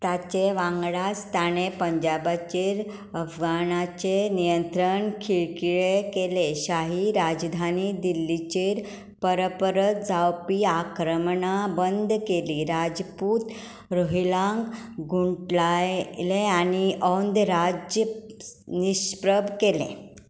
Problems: none marked